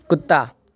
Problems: none marked